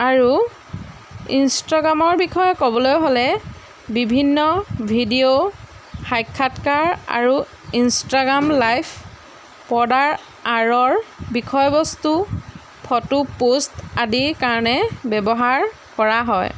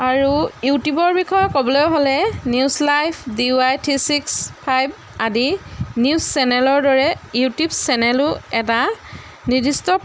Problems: background sounds at intervals